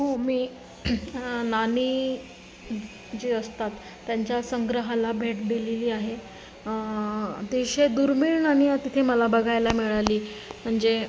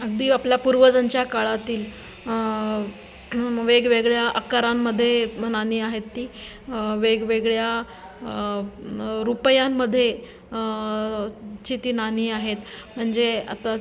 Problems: none marked